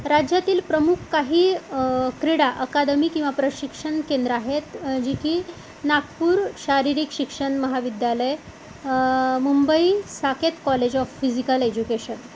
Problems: none marked